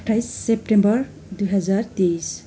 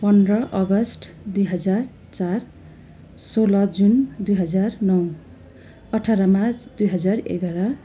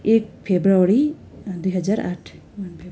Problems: constant background noise